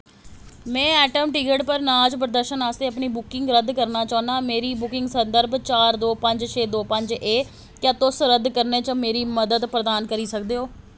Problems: constant background noise